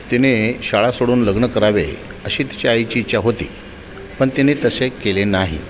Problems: constant background noise, continuous background conversations